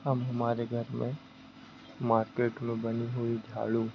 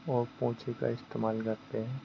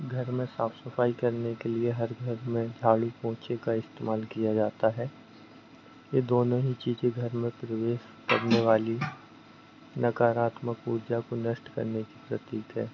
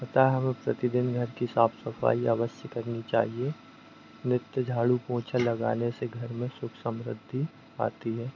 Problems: none marked